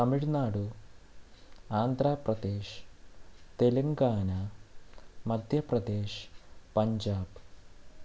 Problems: constant background noise, low volume